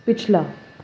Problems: background sounds at intervals